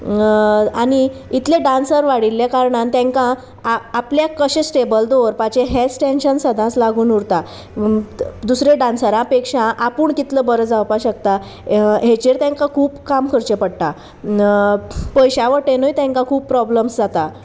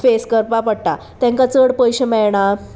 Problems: constant background noise, background conversations at intervals